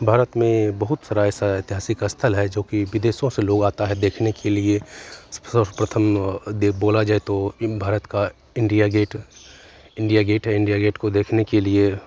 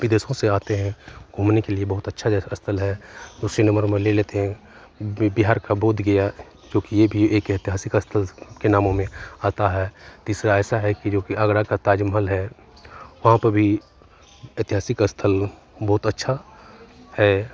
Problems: constant background noise, continuous background conversations